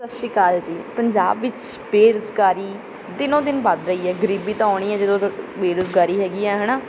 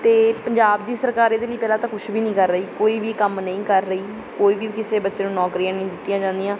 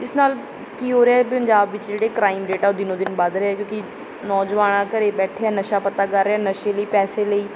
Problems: background sounds at intervals